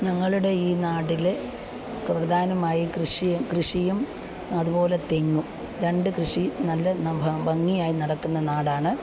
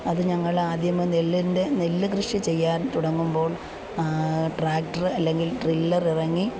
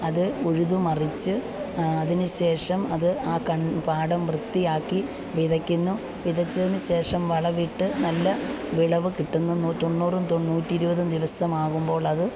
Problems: background sounds at intervals